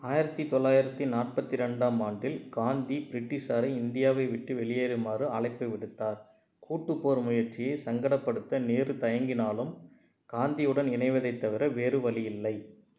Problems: none marked